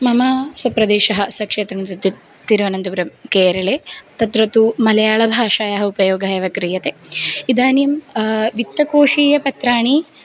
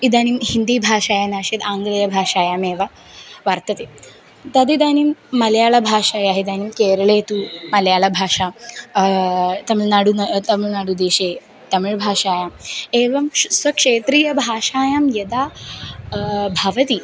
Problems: background sounds at intervals